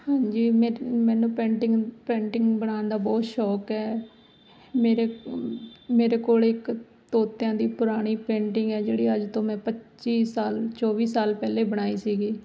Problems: none marked